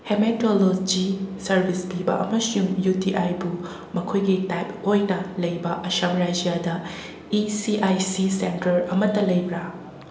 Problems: constant background noise, echo